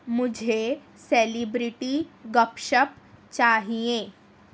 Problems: none marked